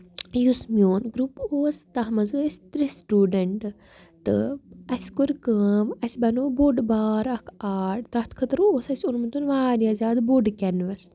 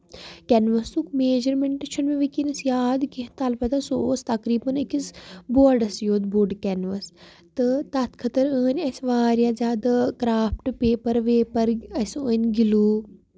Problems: background sounds at intervals